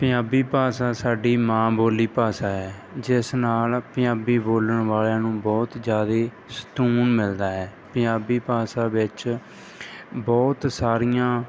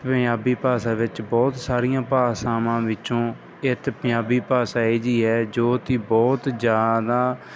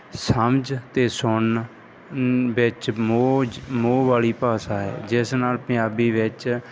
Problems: background sounds at intervals